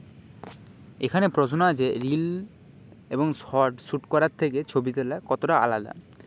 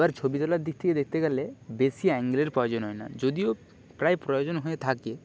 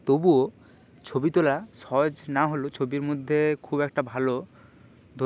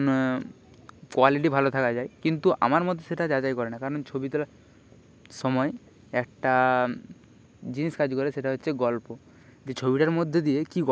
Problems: background sounds at intervals, background conversations at intervals